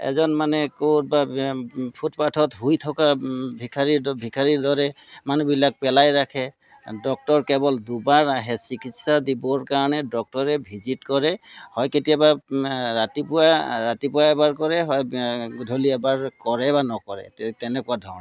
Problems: none marked